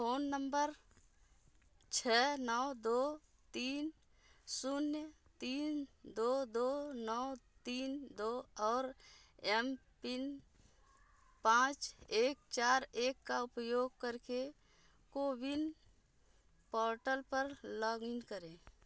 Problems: background sounds at intervals